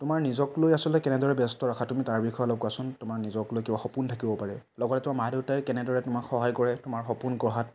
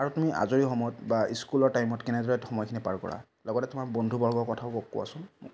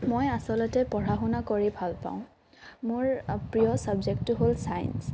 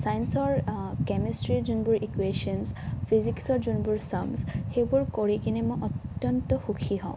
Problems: none marked